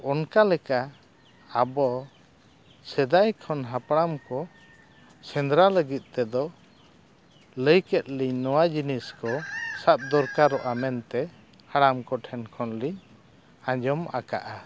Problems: none marked